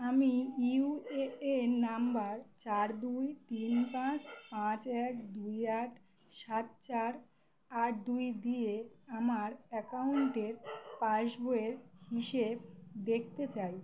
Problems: background sounds at intervals